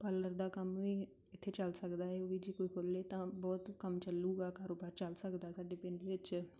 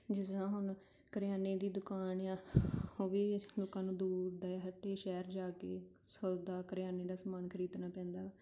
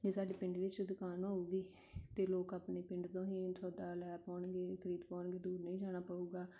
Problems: none marked